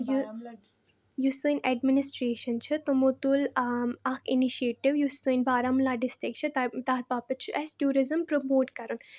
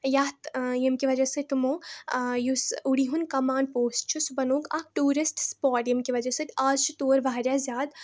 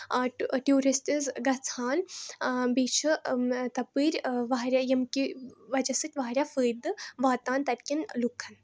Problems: background conversations at intervals